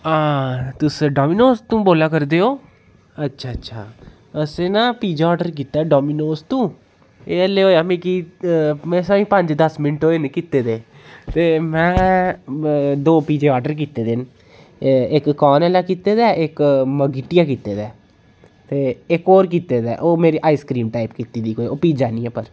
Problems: none marked